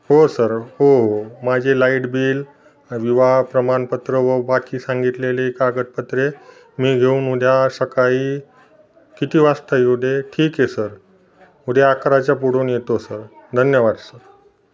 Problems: constant background noise, background conversations at intervals